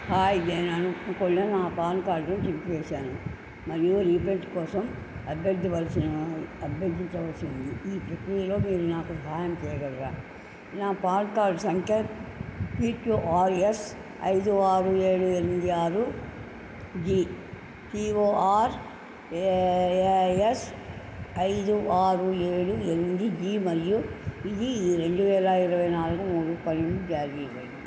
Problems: constant background noise, low volume